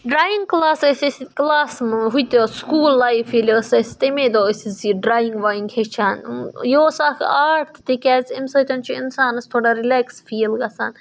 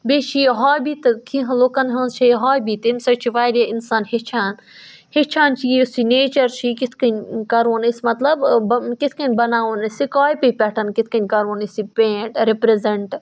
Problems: background sounds at intervals